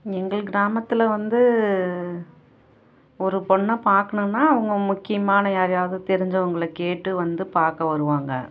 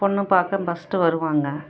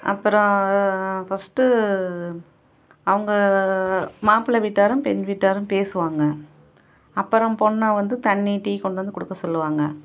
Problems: none marked